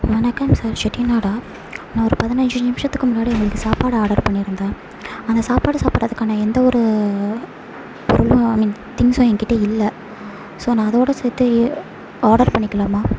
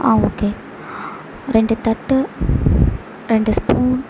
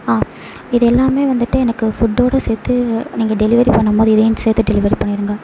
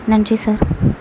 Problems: background sounds at intervals